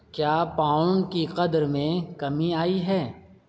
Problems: none marked